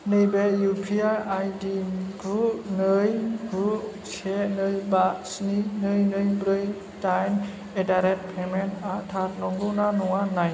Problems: low volume